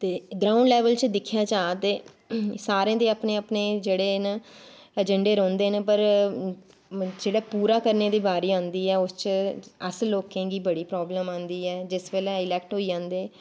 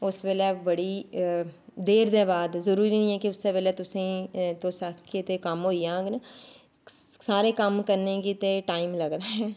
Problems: background sounds at intervals